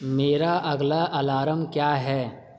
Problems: constant background noise, echo